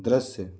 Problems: none marked